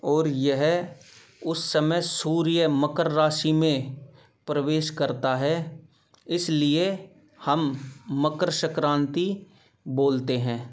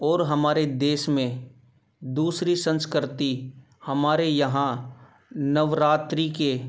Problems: background sounds at intervals